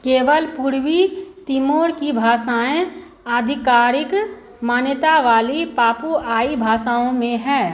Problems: constant background noise